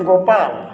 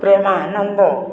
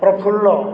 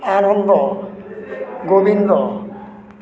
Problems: constant background noise, continuous background conversations